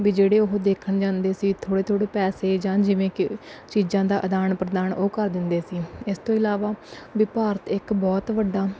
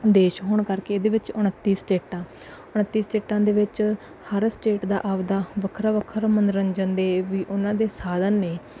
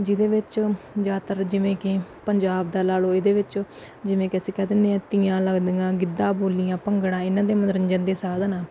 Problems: none marked